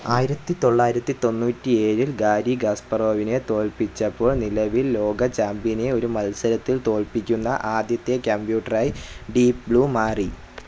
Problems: constant background noise